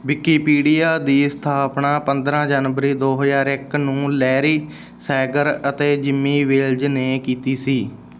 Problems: background sounds at intervals